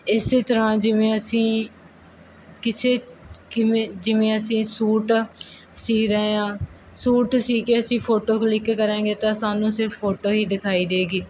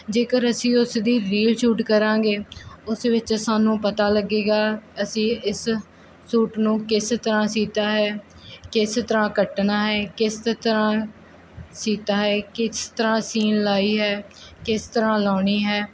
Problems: none marked